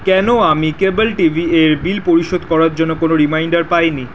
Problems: none marked